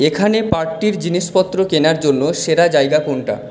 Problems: none marked